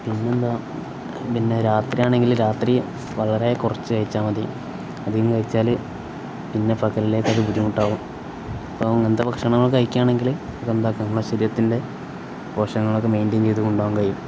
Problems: constant background noise